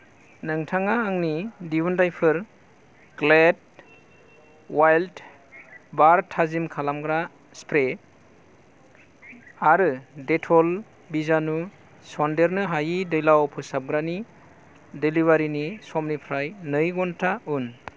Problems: low volume